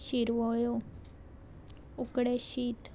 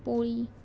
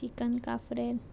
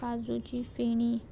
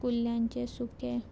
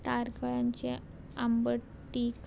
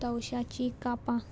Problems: none marked